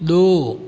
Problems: background sounds at intervals